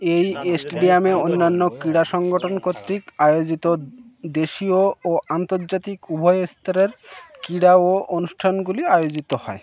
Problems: background sounds at intervals, continuous background conversations